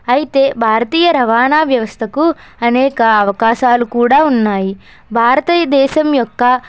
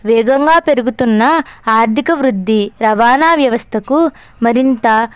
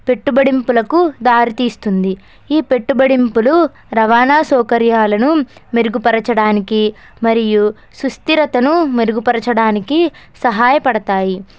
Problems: background sounds at intervals